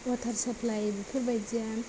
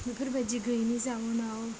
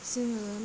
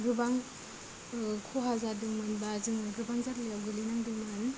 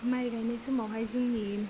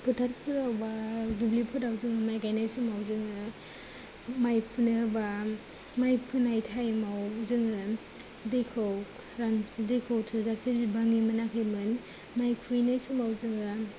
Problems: low volume